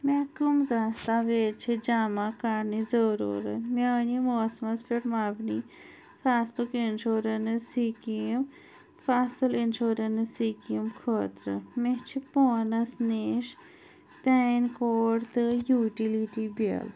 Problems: none marked